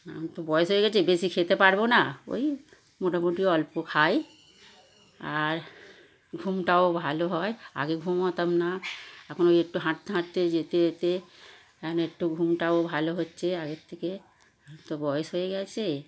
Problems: constant background noise